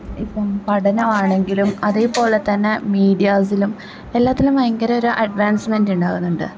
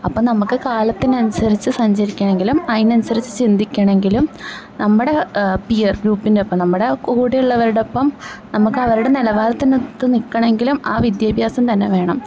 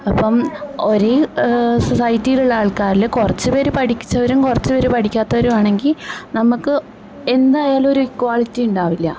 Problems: background conversations at intervals